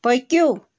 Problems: constant background noise